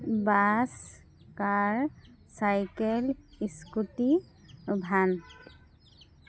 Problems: constant background noise